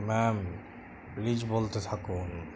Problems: constant background noise